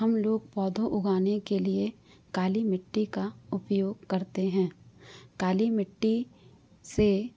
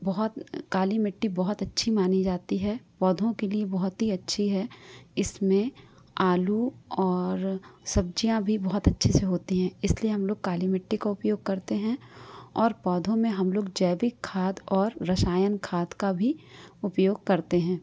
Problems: low volume